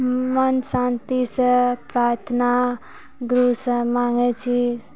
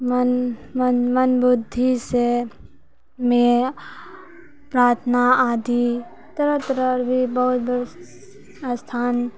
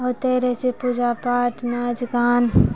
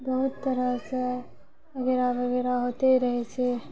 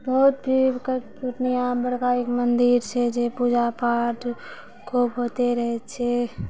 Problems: none marked